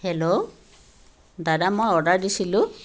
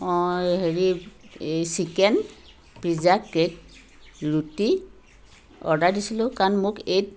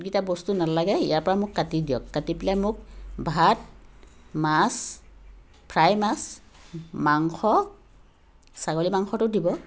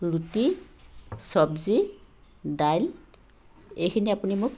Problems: constant background noise